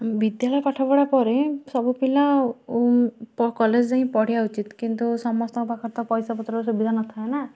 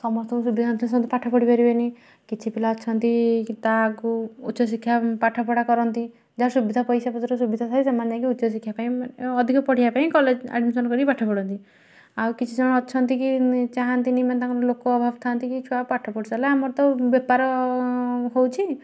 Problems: none marked